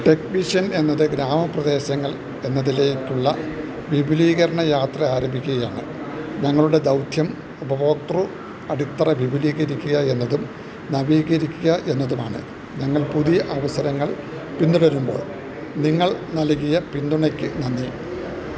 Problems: constant background noise, background conversations at intervals, low volume